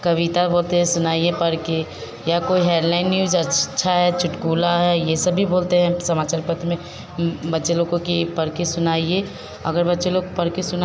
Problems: none marked